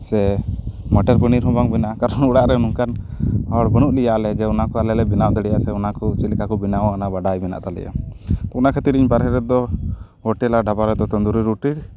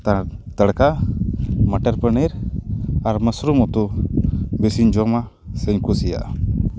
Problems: constant background noise